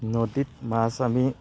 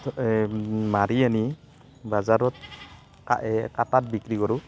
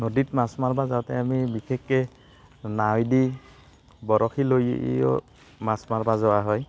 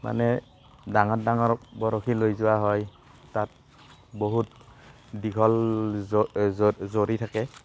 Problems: constant background noise, background conversations at intervals